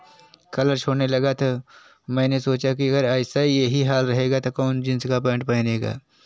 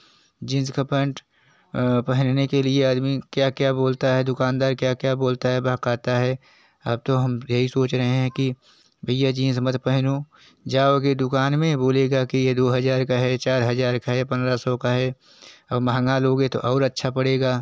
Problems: none marked